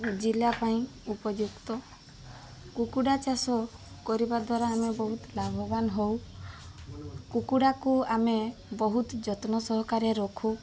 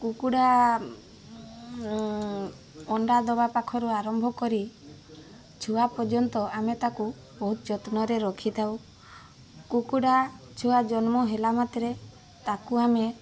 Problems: constant background noise, continuous background conversations